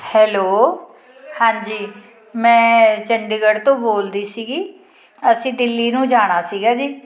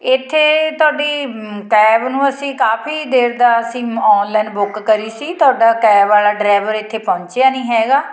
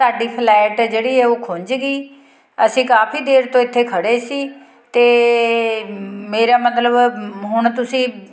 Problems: continuous background conversations